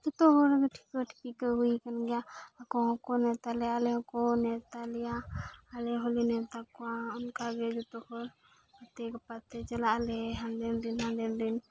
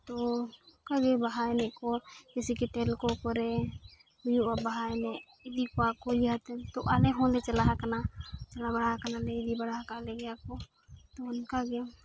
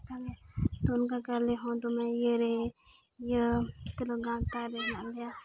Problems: background sounds at intervals, background conversations at intervals